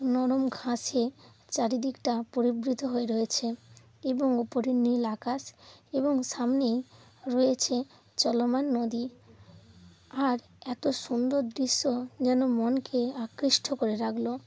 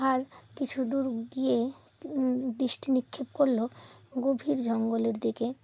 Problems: background sounds at intervals